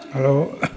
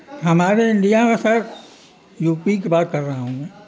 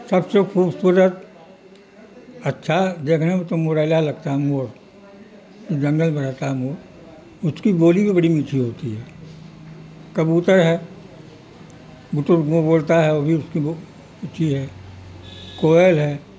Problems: constant background noise